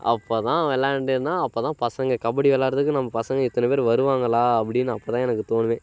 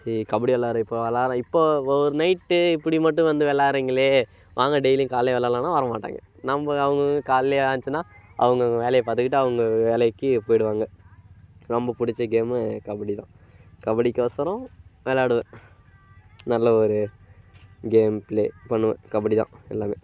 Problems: constant background noise